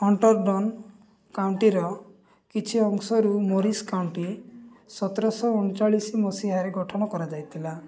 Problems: none marked